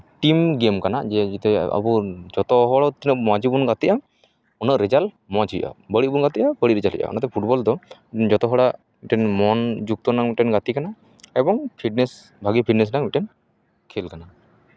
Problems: none marked